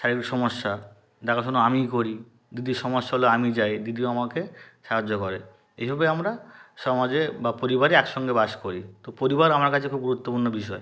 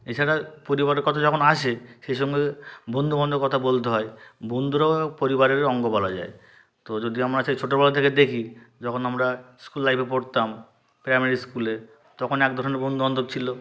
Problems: background sounds at intervals